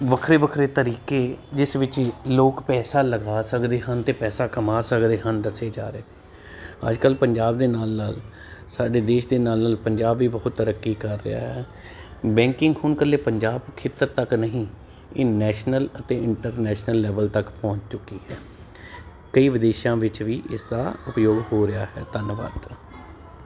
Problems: constant background noise